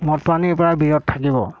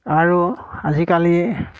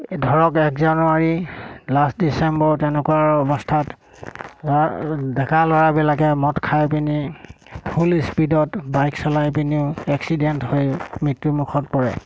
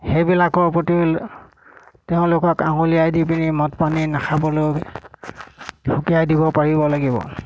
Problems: constant background noise